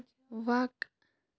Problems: background sounds at intervals